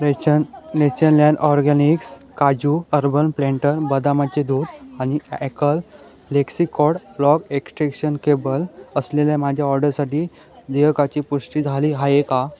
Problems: none marked